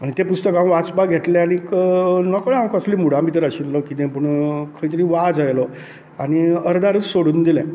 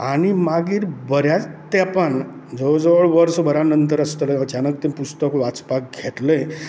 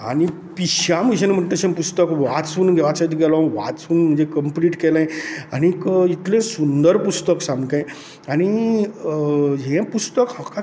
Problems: none marked